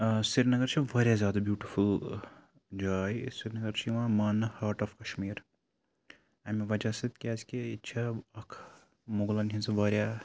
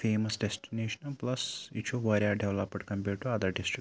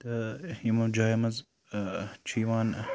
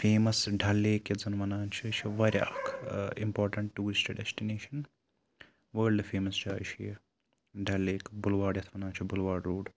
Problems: constant background noise